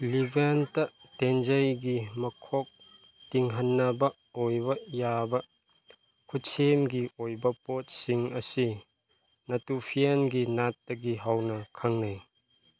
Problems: none marked